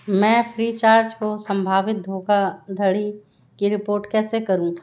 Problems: none marked